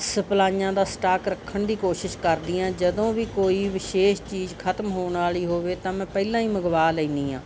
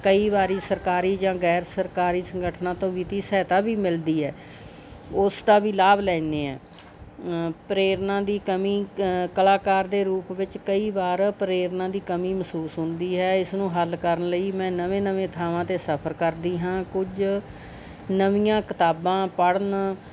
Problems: background sounds at intervals